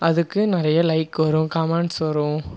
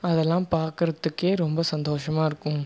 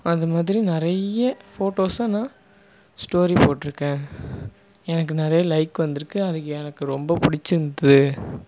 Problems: none marked